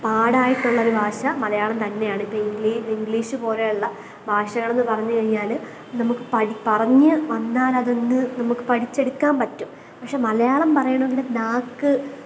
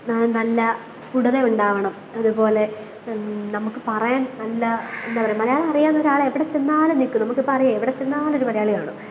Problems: constant background noise